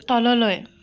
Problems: none marked